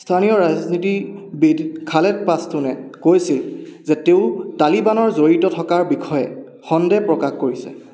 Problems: echo